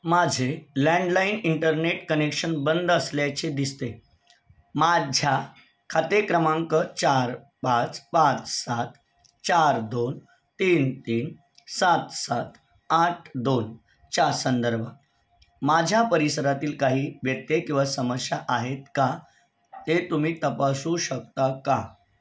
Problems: none marked